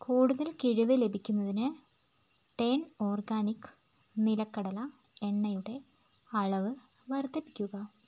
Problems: constant background noise